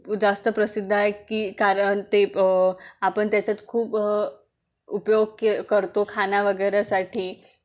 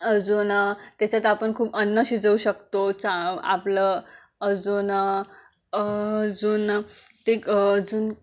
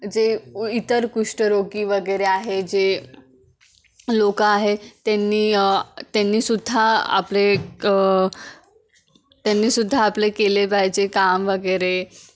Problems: constant background noise